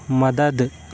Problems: none marked